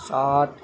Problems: constant background noise